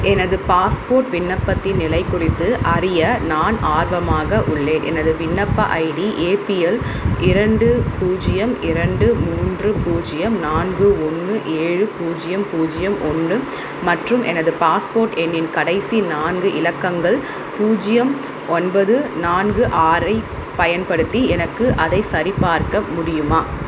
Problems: constant background noise